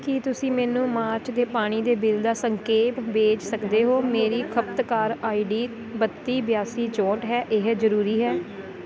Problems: constant background noise